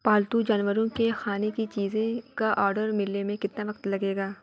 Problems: background sounds at intervals